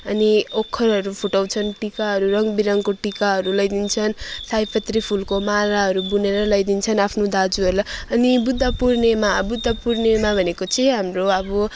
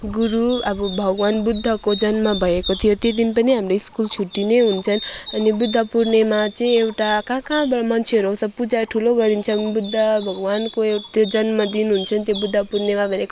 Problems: constant background noise